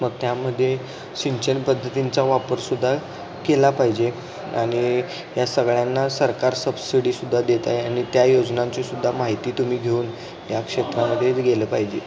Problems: constant background noise, continuous background conversations